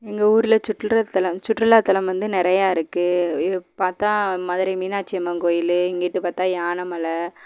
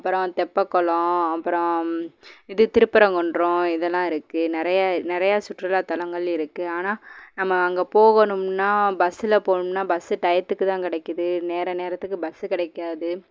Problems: background conversations at intervals